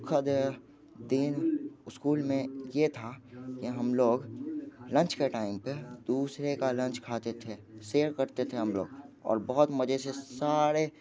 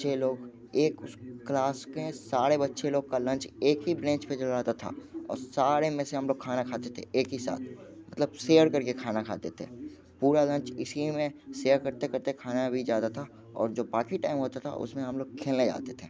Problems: background conversations at intervals